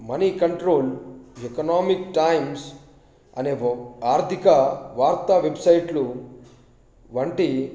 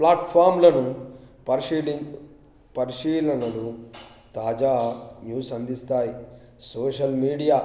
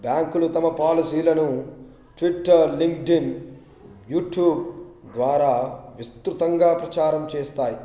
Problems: background sounds at intervals